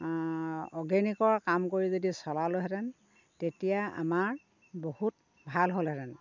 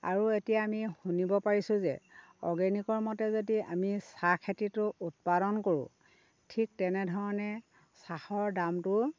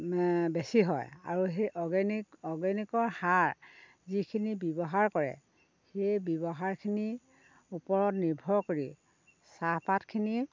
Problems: none marked